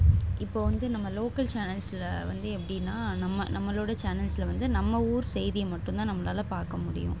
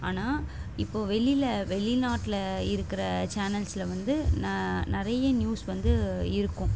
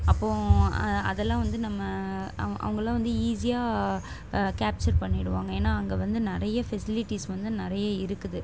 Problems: constant background noise